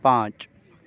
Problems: constant background noise